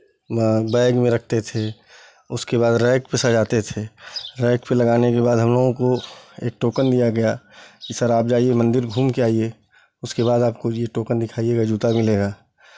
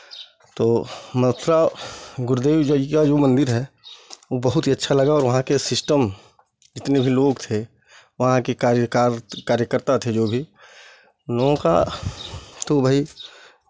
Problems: background sounds at intervals